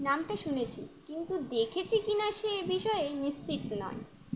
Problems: constant background noise